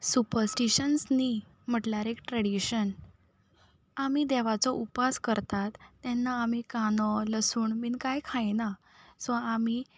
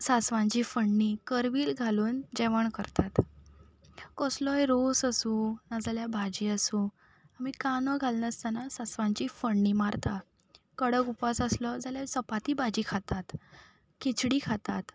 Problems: none marked